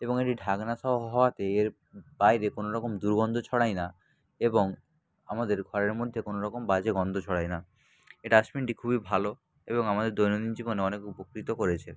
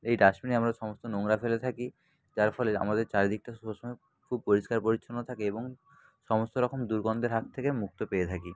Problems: constant background noise, background conversations at intervals